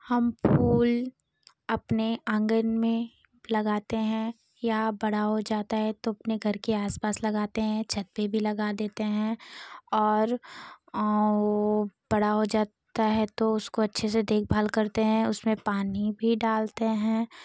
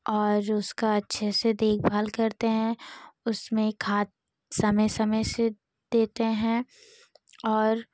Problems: background sounds at intervals